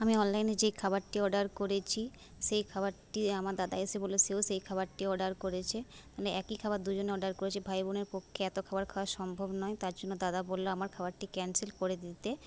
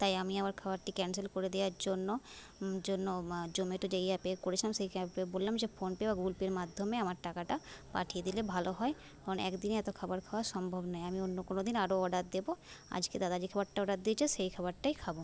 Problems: none marked